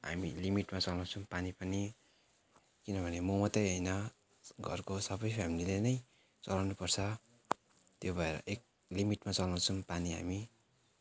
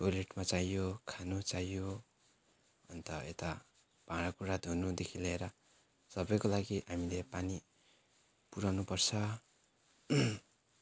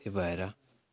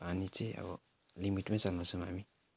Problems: none marked